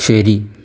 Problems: none marked